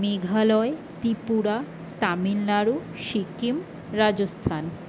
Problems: constant background noise